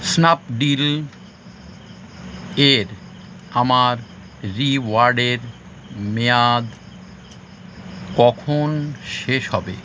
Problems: constant background noise